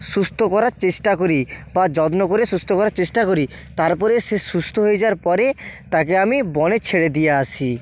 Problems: constant background noise